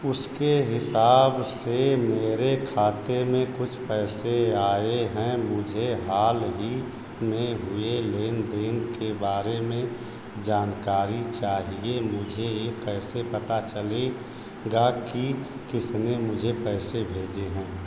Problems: constant background noise